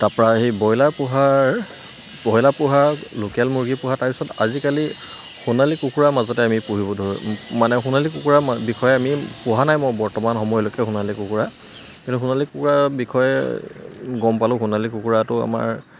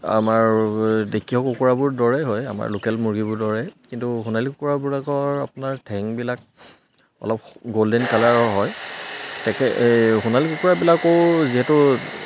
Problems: background sounds at intervals